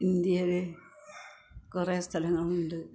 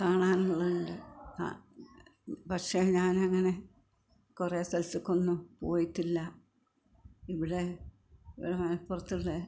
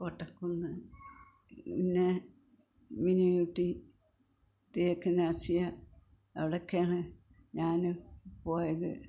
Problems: low volume